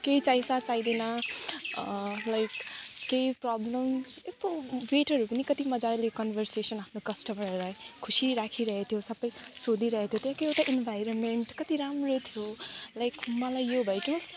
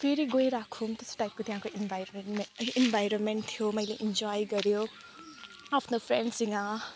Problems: background conversations at intervals